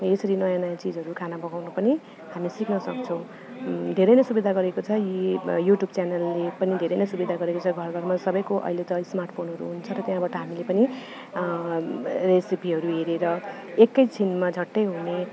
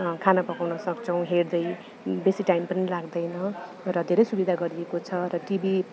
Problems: none marked